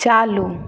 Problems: none marked